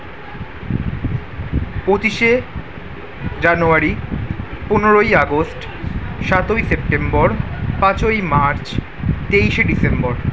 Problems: background conversations at intervals